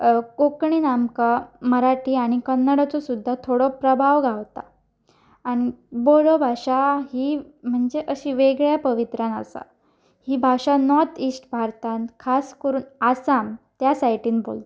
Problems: background sounds at intervals